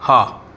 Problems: constant background noise